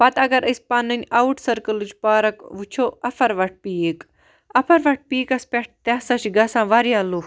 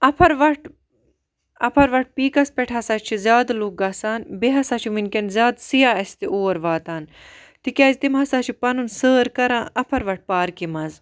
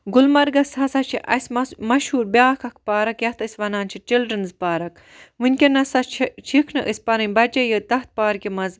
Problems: none marked